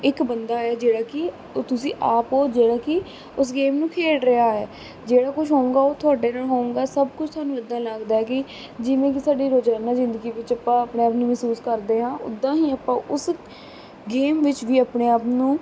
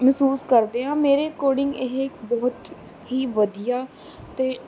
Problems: constant background noise